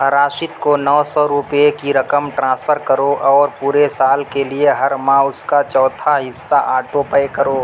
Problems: constant background noise